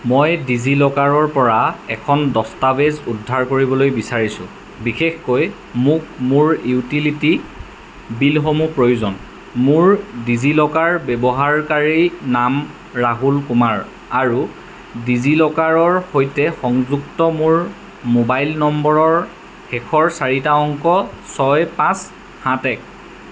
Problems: constant background noise